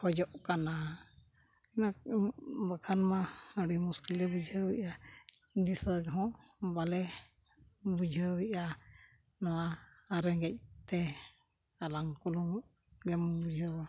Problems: background sounds at intervals